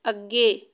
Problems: none marked